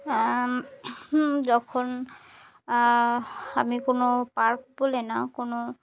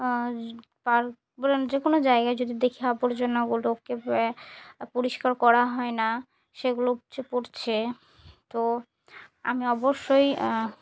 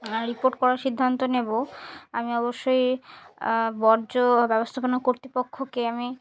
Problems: none marked